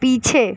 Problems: constant background noise